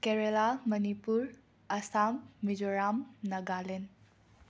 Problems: none marked